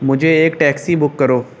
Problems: none marked